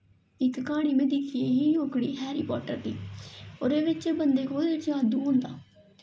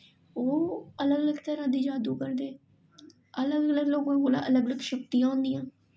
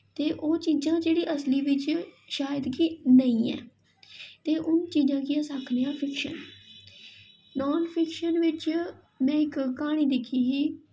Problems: echo